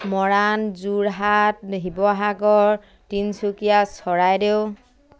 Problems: none marked